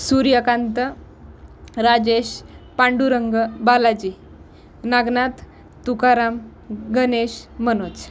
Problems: none marked